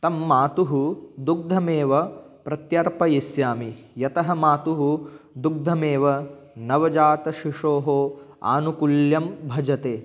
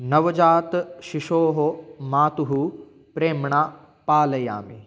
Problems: none marked